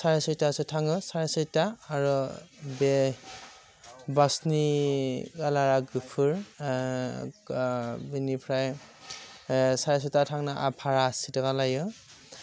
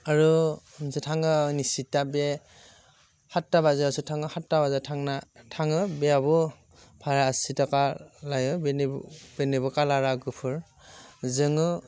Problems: constant background noise